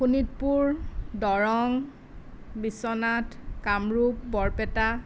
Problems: none marked